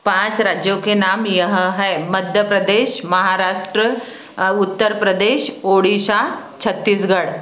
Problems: constant background noise